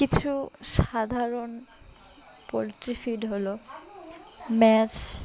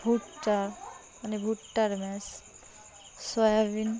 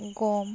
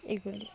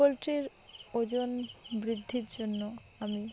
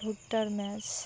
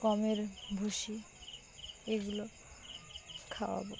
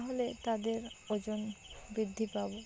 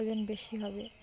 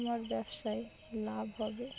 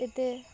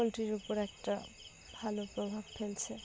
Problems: constant background noise, continuous background conversations